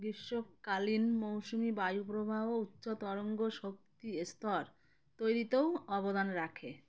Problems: none marked